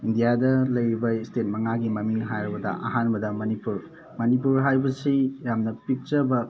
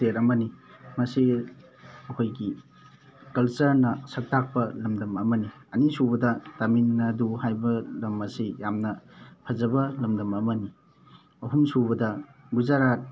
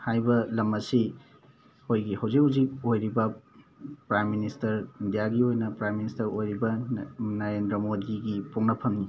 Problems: constant background noise, background conversations at intervals